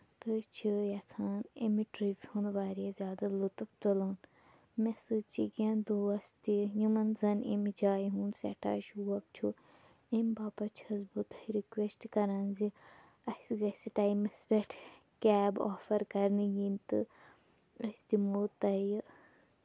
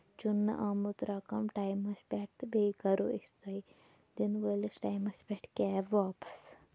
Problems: background sounds at intervals